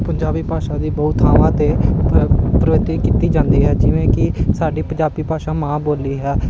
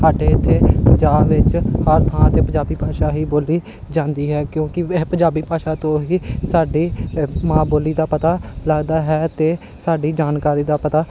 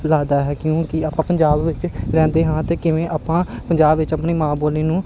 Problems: none marked